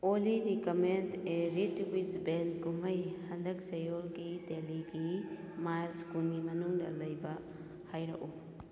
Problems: background sounds at intervals